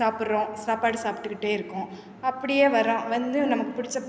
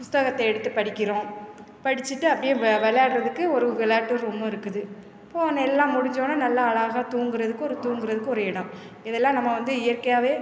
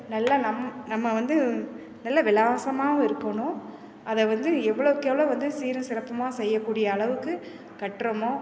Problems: constant background noise